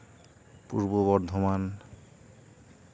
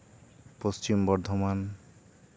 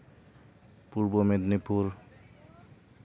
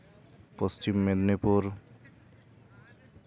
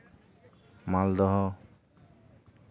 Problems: none marked